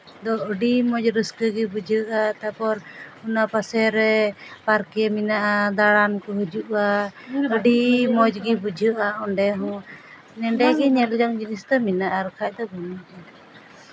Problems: background sounds at intervals, background conversations at intervals